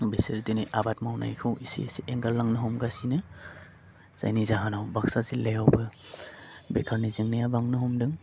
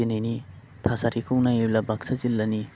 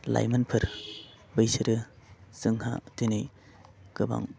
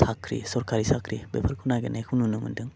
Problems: low volume